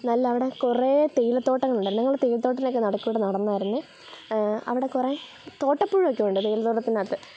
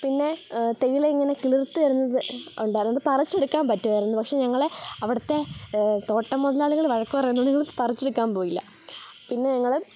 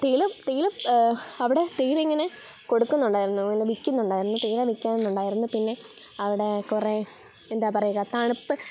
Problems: background sounds at intervals